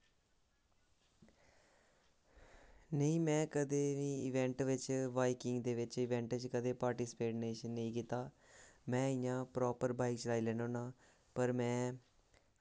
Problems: constant background noise